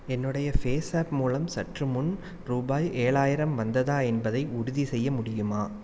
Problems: none marked